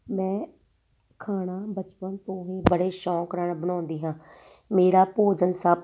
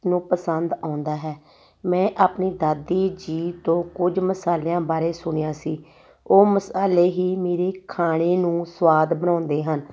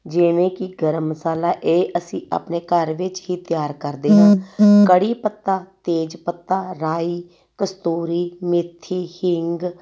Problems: background sounds at intervals